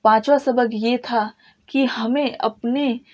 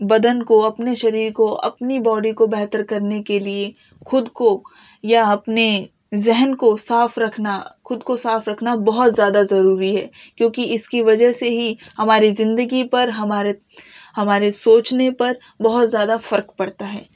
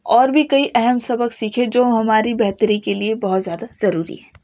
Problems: none marked